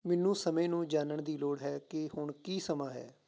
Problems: background sounds at intervals